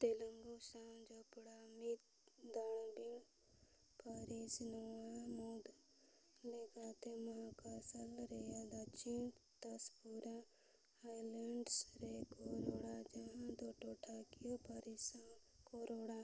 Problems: background sounds at intervals, low volume